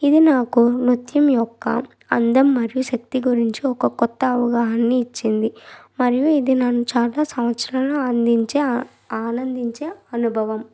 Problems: none marked